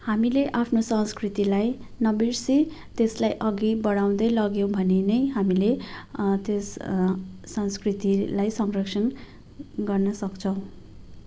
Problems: none marked